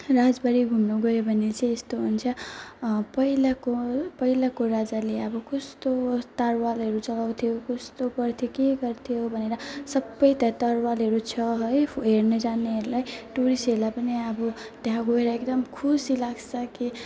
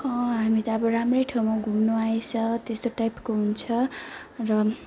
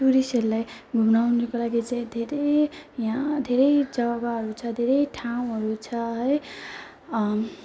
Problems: constant background noise, continuous background conversations